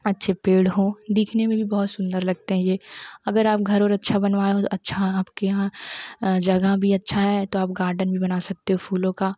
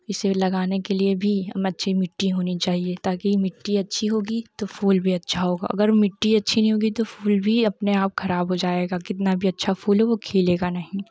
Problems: none marked